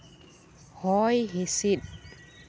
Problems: constant background noise